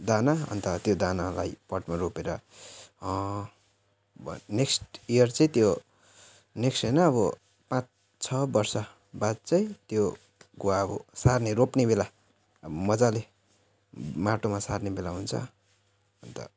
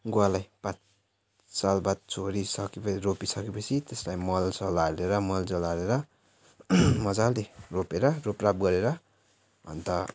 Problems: none marked